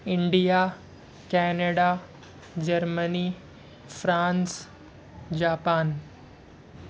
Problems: none marked